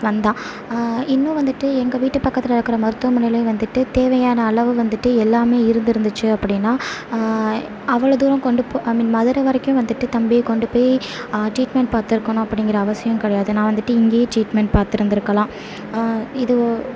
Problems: constant background noise